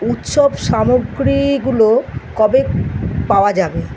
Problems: none marked